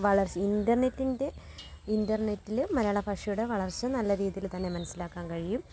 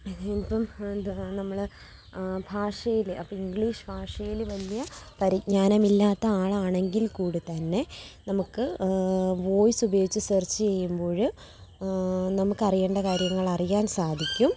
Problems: background sounds at intervals, low volume